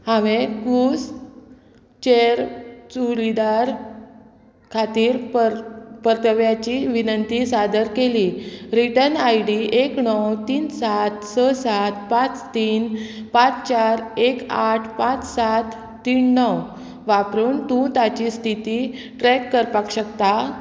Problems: constant background noise